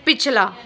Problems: background sounds at intervals